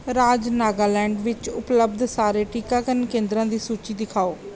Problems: background sounds at intervals